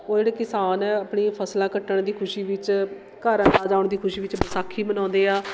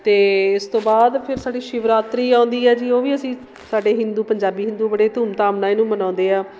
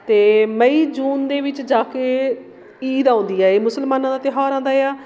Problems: constant background noise